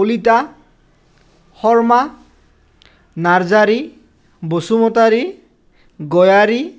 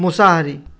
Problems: none marked